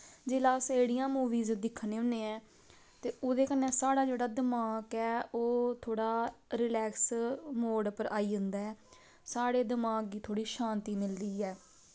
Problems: none marked